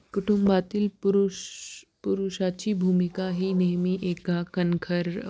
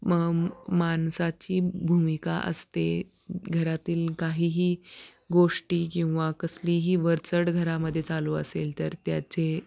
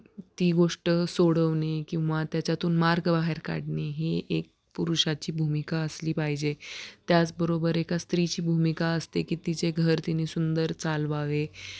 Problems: background sounds at intervals